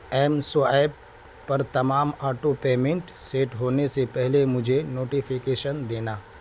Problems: constant background noise